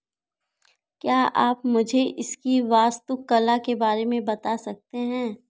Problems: none marked